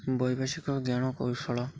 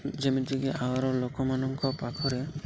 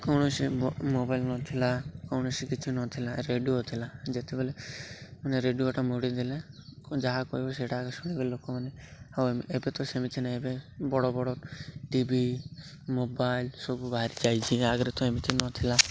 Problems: none marked